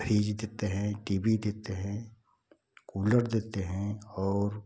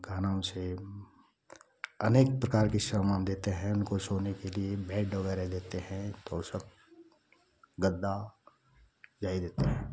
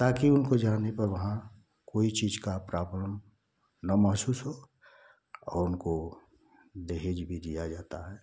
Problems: constant background noise